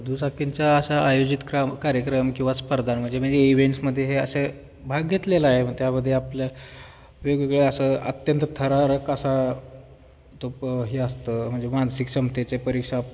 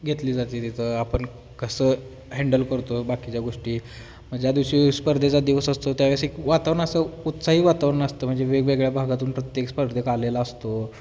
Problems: none marked